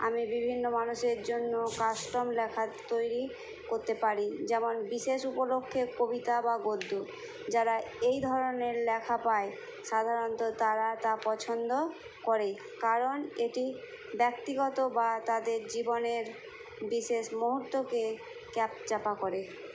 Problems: constant background noise